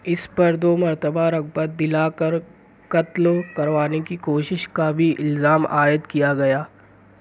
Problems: background sounds at intervals